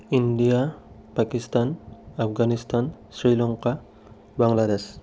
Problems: none marked